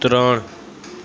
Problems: constant background noise